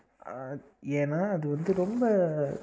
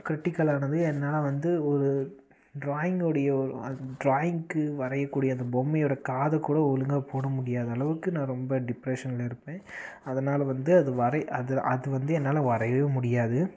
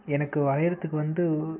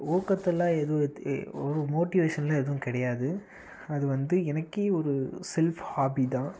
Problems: constant background noise